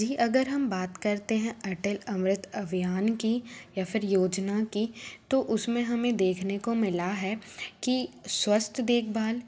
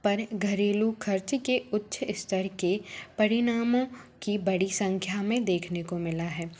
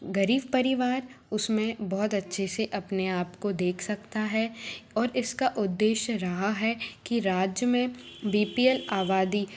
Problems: constant background noise